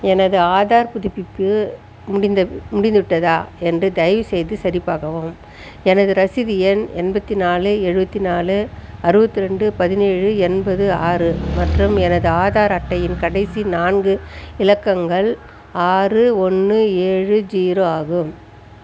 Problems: constant background noise